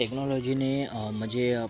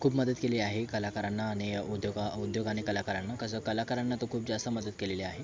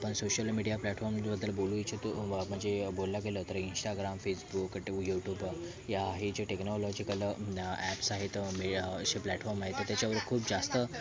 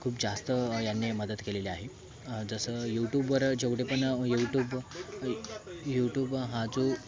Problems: constant background noise, background conversations at intervals